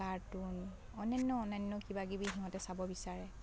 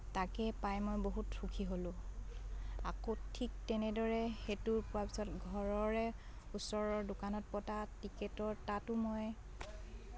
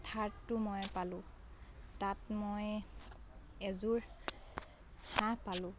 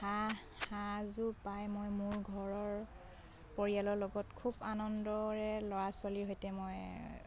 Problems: background sounds at intervals, background conversations at intervals